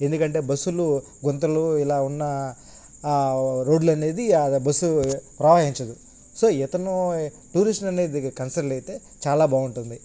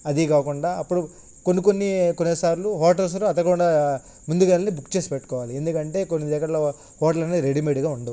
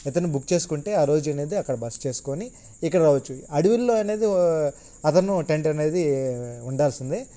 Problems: none marked